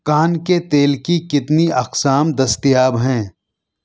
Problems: none marked